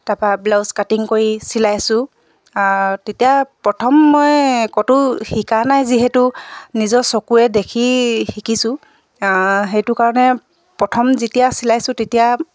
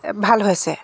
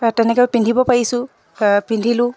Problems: background sounds at intervals